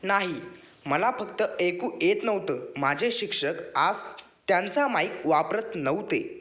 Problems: none marked